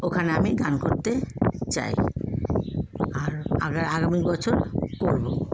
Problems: none marked